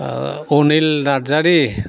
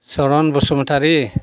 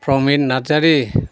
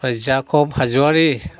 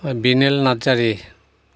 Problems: constant background noise